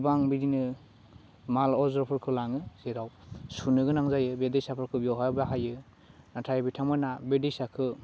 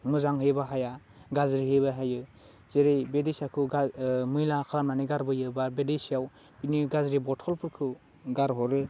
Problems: constant background noise